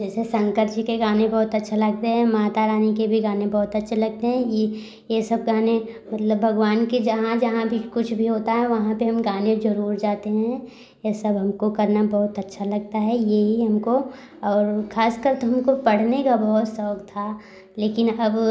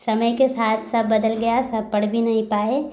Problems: background sounds at intervals